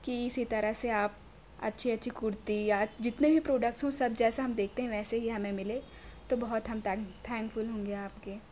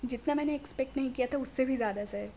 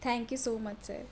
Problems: none marked